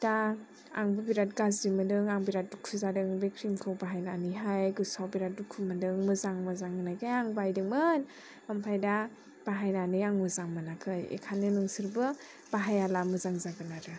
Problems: none marked